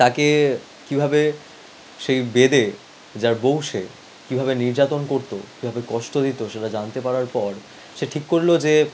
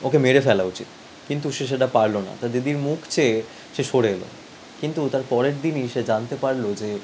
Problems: background sounds at intervals